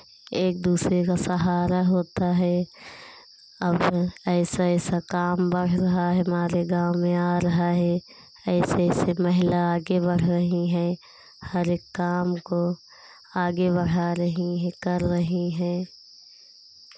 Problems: constant background noise